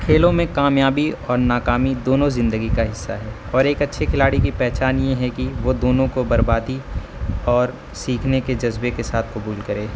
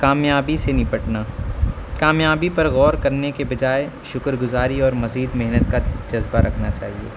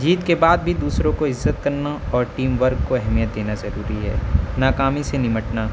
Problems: constant background noise